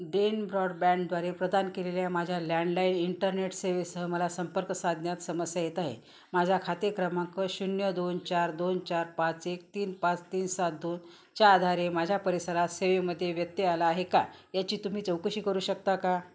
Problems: none marked